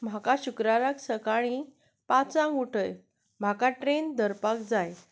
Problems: none marked